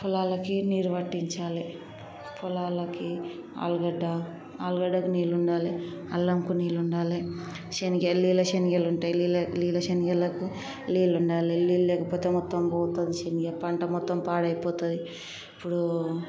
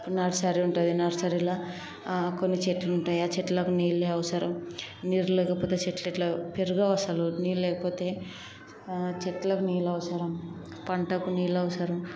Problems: constant background noise, background conversations at intervals